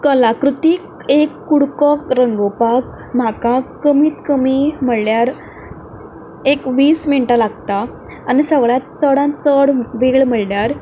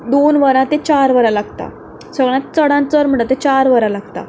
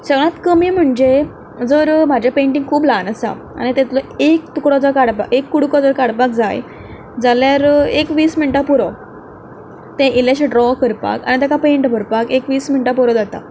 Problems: background sounds at intervals